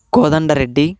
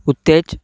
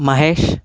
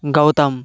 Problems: background sounds at intervals